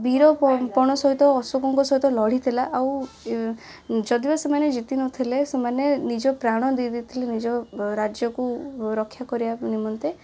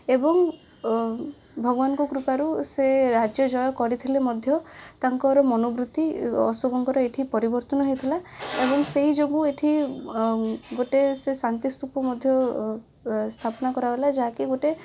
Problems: none marked